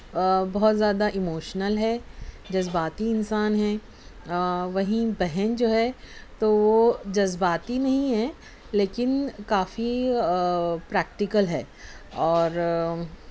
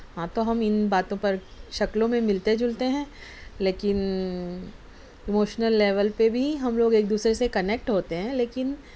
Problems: none marked